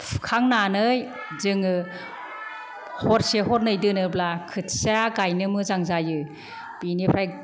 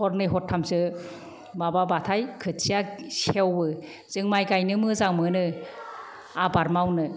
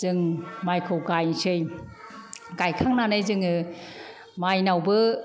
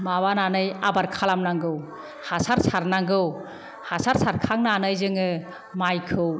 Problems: none marked